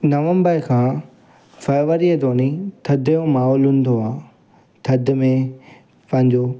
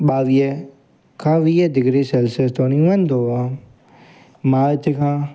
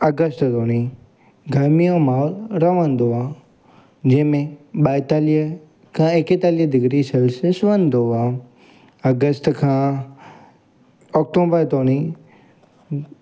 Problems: constant background noise, echo